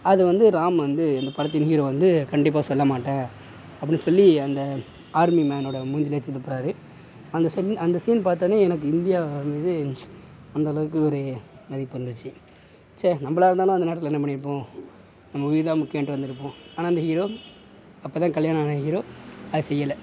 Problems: none marked